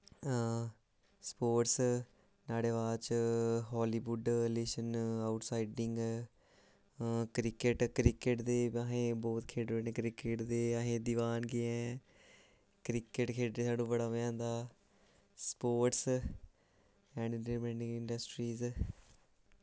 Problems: low volume